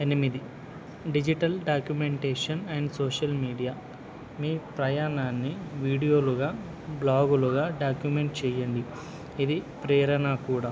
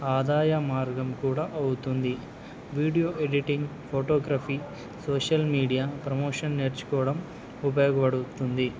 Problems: none marked